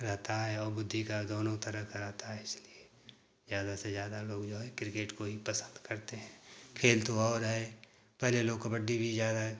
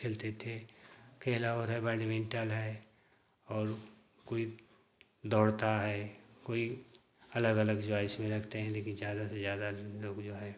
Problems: constant background noise